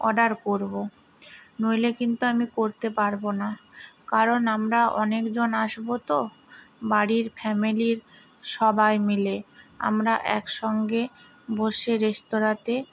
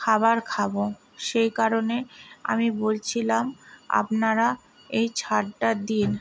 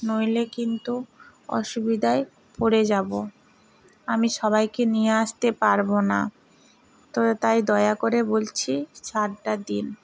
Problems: constant background noise